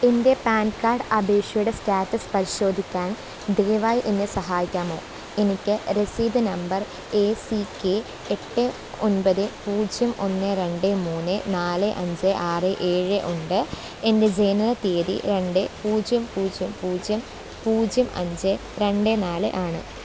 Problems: constant background noise, low volume